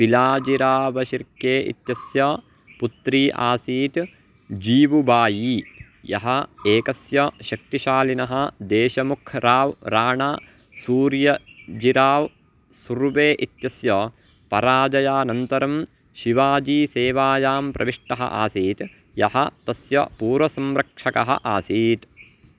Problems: constant background noise